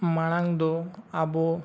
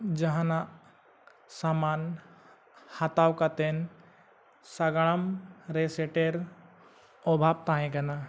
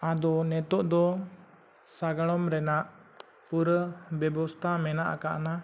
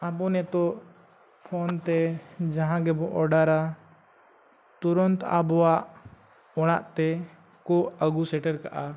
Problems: none marked